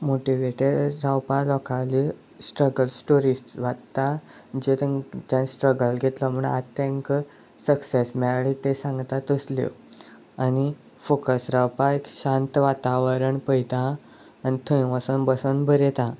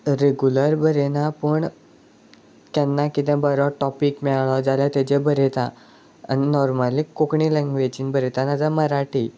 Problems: none marked